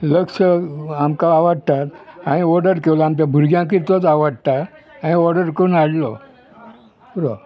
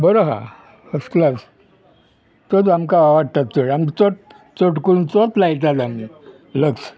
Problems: none marked